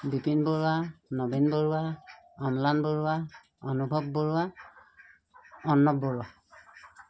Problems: none marked